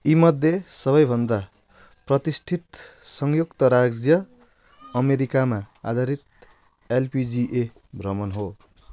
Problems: none marked